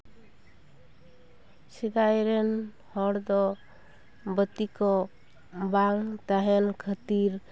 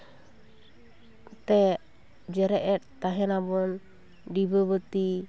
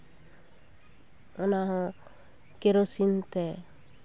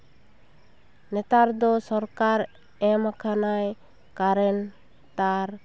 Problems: constant background noise, background conversations at intervals